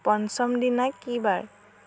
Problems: constant background noise